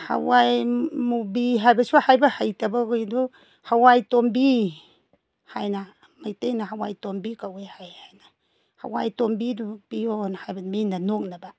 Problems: none marked